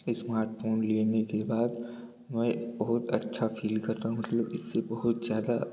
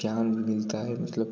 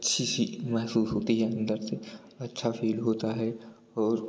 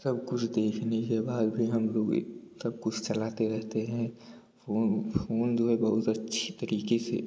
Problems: none marked